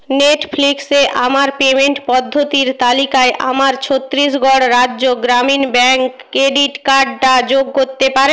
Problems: none marked